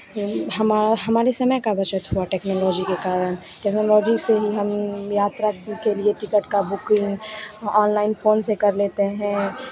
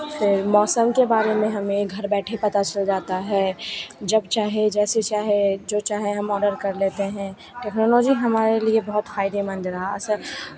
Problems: none marked